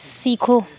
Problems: none marked